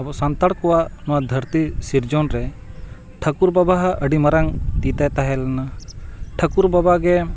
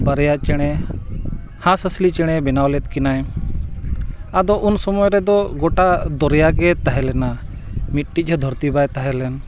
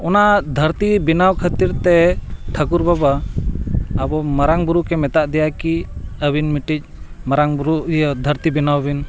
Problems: constant background noise